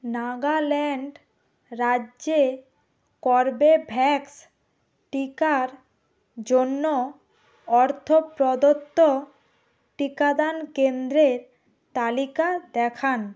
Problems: constant background noise